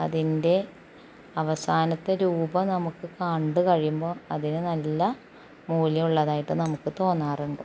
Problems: constant background noise, low volume